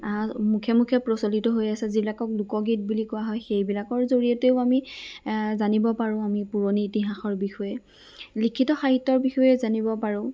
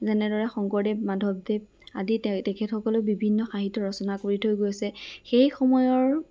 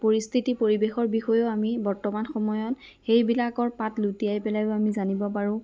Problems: background sounds at intervals